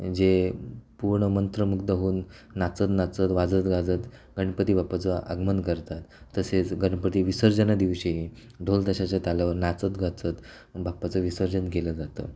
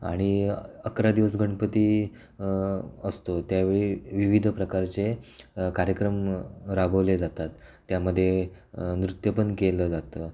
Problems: none marked